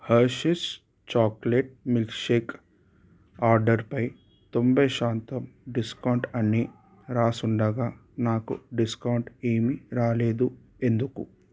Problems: background sounds at intervals